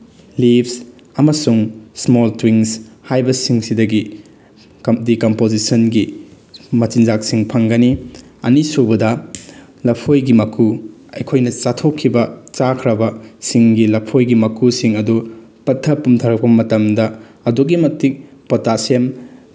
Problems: background sounds at intervals